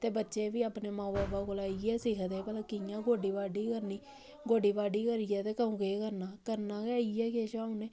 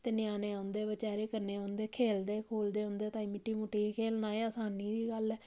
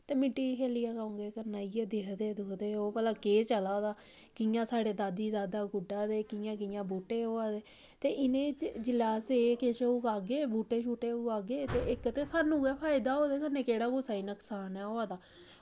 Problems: none marked